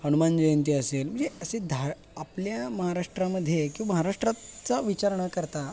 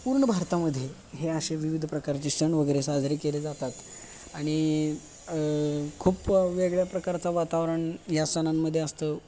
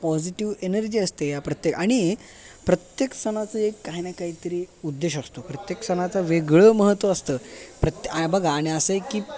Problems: background sounds at intervals, background conversations at intervals